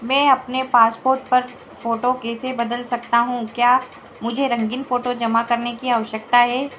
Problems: background sounds at intervals